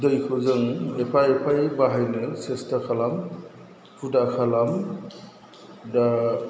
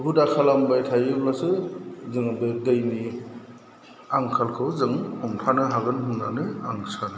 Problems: none marked